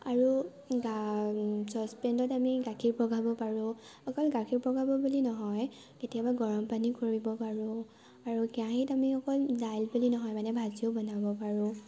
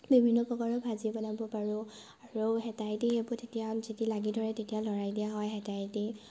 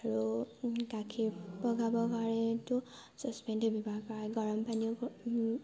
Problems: background sounds at intervals